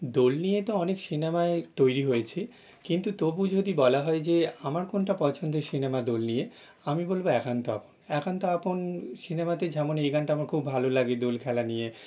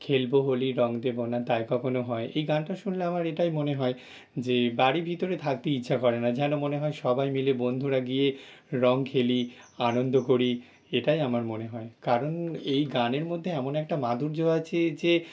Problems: background sounds at intervals